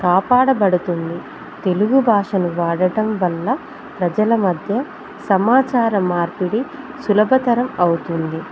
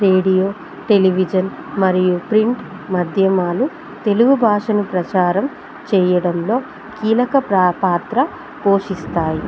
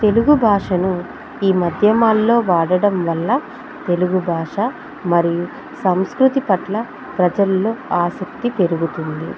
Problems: constant background noise